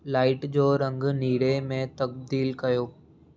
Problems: none marked